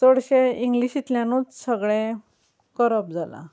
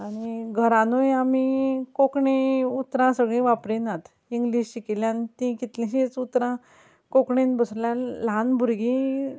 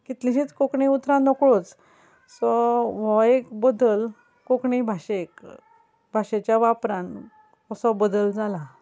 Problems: none marked